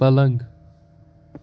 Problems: none marked